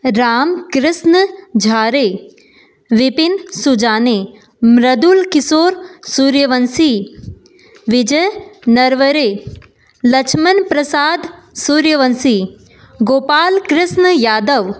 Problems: constant background noise